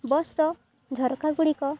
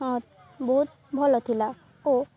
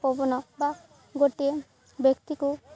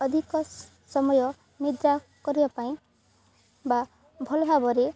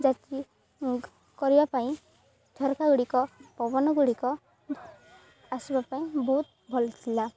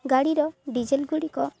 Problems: none marked